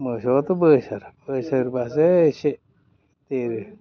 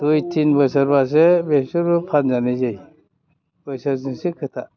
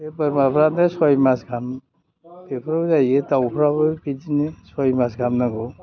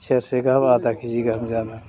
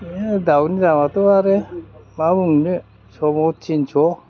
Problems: background sounds at intervals, background conversations at intervals